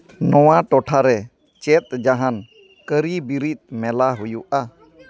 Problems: background conversations at intervals